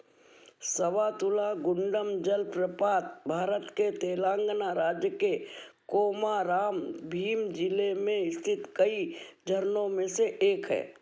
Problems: none marked